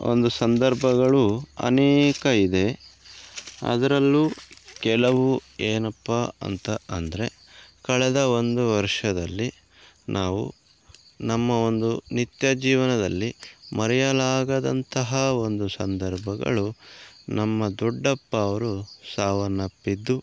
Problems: background sounds at intervals